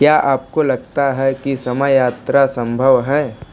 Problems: background sounds at intervals